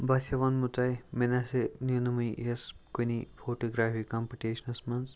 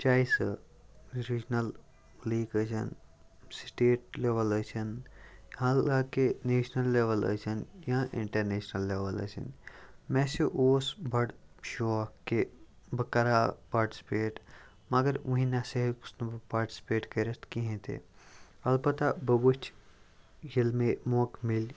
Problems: none marked